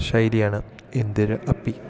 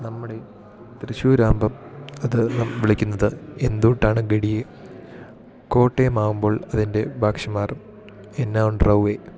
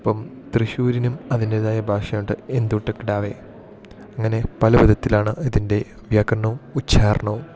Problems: continuous background conversations